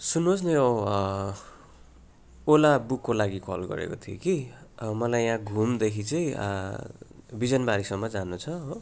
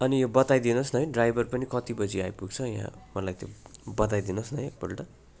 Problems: background sounds at intervals